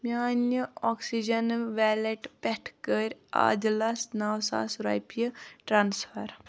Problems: none marked